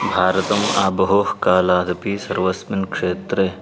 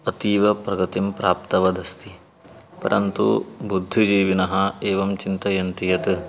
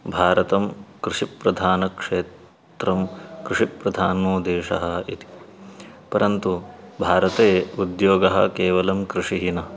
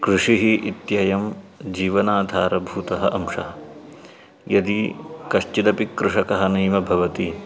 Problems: background sounds at intervals